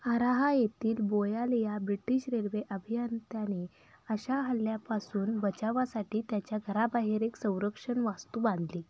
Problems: background sounds at intervals, low volume